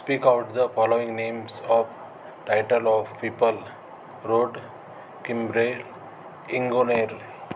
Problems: constant background noise, background conversations at intervals